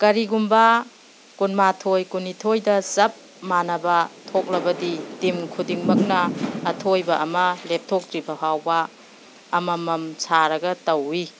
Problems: background sounds at intervals